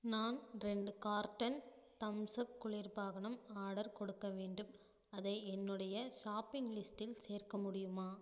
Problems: low volume